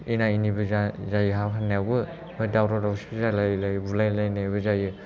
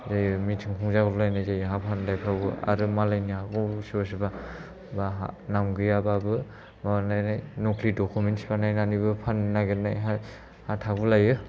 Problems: low volume